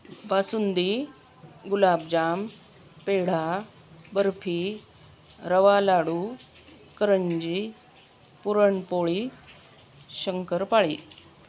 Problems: none marked